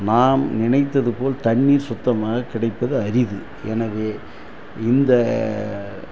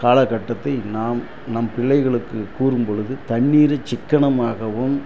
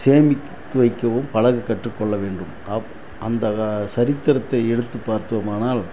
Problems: constant background noise